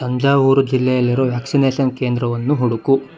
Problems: none marked